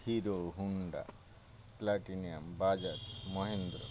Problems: constant background noise